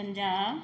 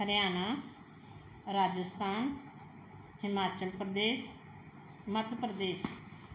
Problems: background sounds at intervals